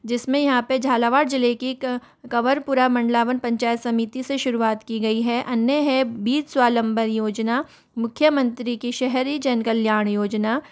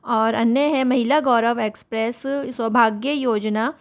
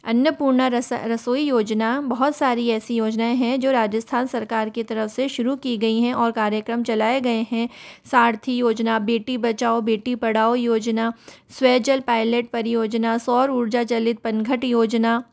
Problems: none marked